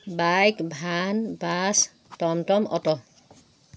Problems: none marked